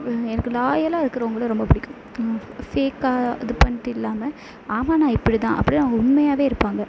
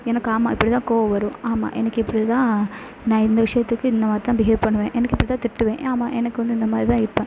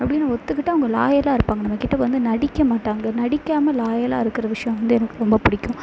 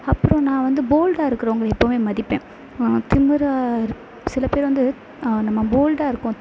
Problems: constant background noise